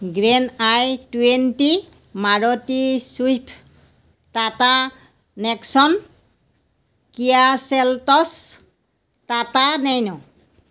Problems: none marked